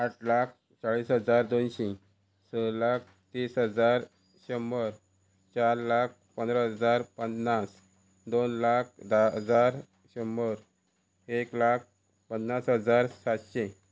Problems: constant background noise